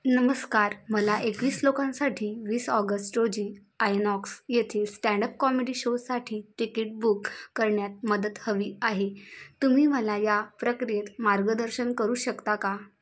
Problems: constant background noise